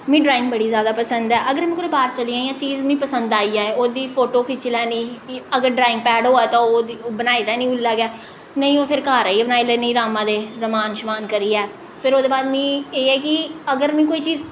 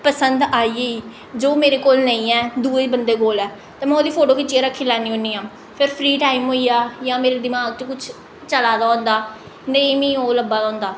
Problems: echo